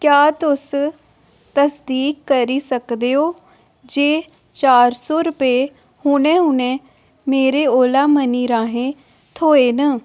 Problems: none marked